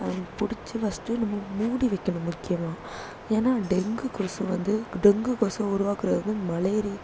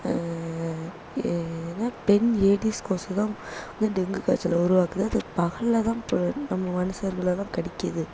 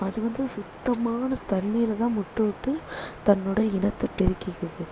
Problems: low volume